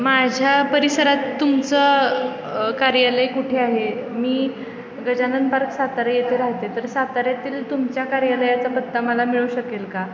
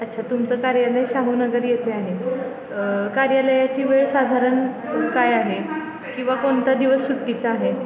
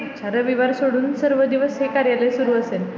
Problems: constant background noise, continuous background conversations